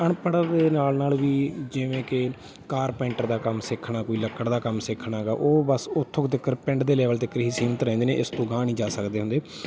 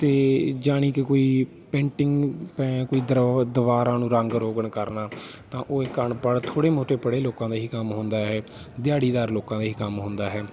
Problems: background sounds at intervals, background conversations at intervals